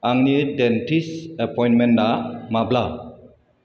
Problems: constant background noise